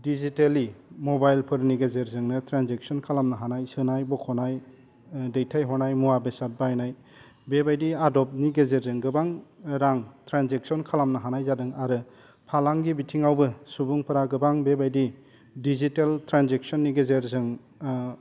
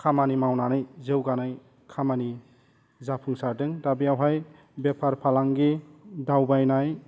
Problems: none marked